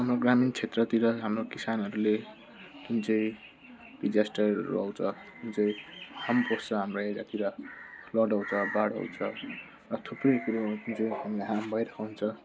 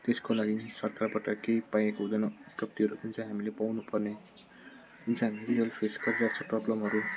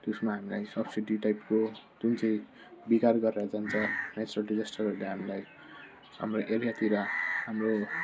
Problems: constant background noise, low volume